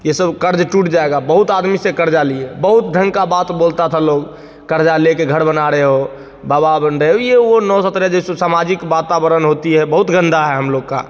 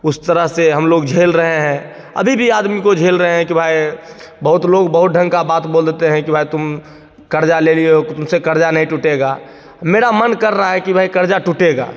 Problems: constant background noise, echo